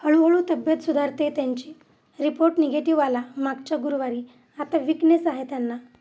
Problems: constant background noise